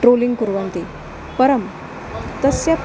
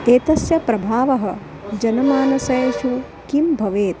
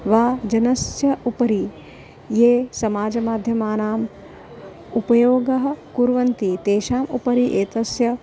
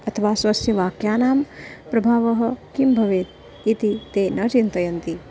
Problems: constant background noise